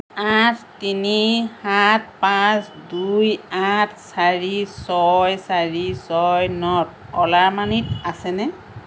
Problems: constant background noise